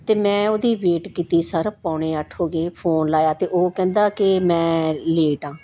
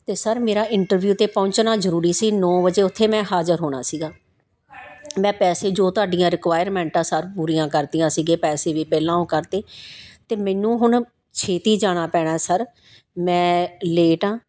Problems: constant background noise